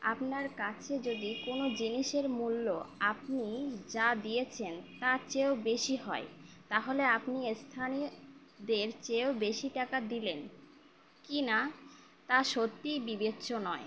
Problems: constant background noise